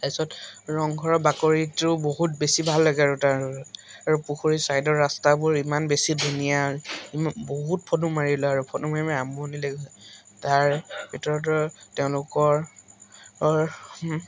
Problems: constant background noise, background conversations at intervals